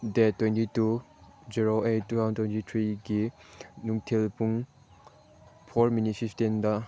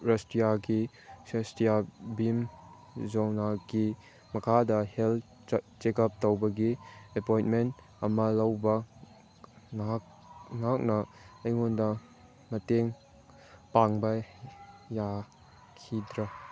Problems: background sounds at intervals